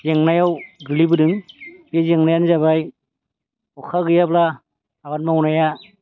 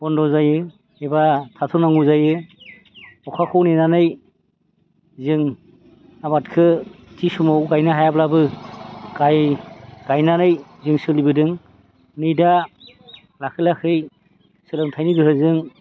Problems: constant background noise